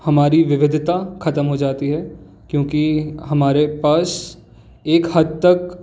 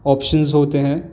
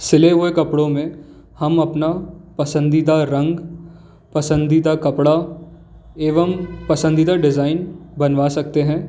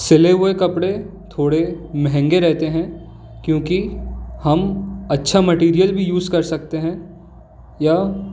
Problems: background sounds at intervals